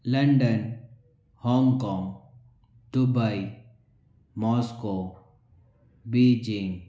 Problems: none marked